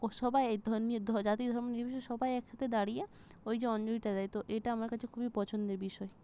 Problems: none marked